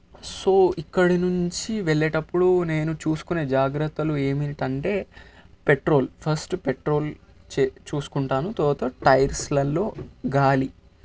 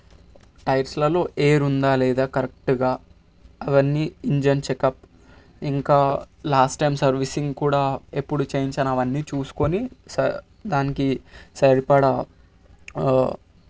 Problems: constant background noise